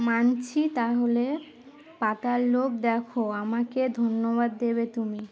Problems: background sounds at intervals